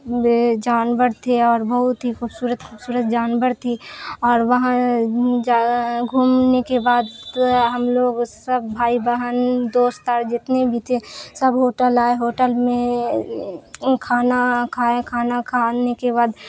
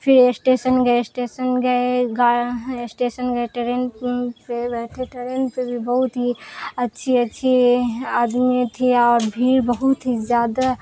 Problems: constant background noise